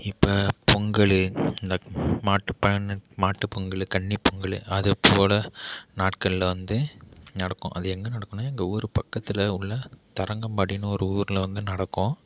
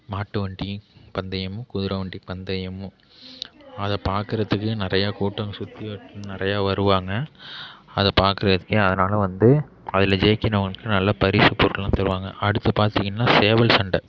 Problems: none marked